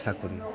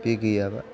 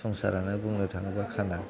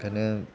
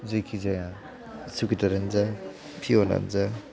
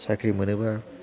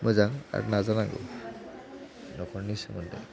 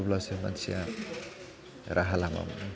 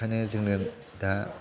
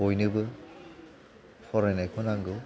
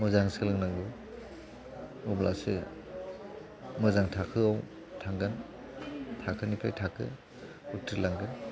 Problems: background conversations at intervals, low volume